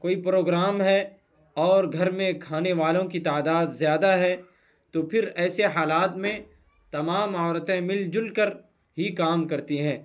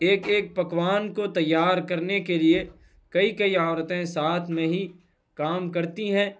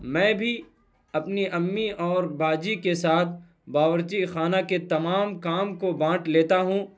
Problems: none marked